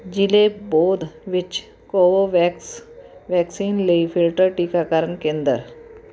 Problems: constant background noise